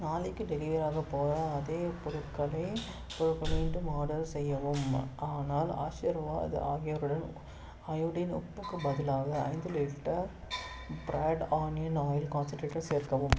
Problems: background sounds at intervals